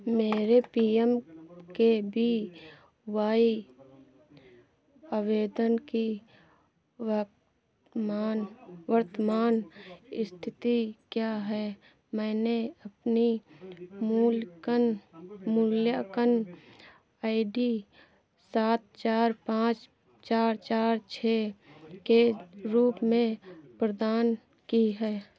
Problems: continuous background conversations